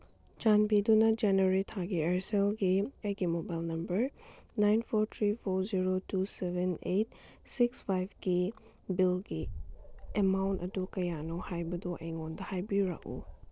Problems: none marked